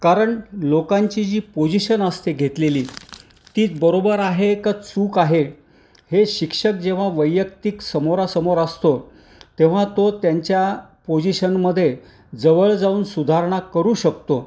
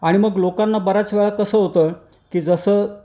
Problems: none marked